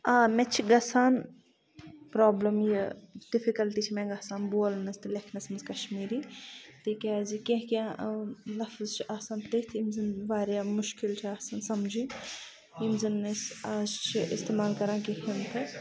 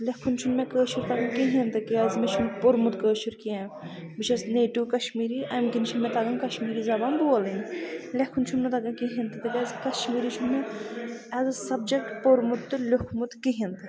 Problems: constant background noise, low volume